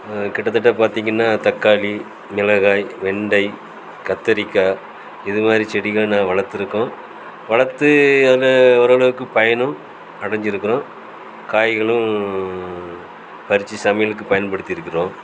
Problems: constant background noise